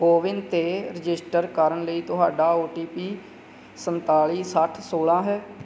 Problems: none marked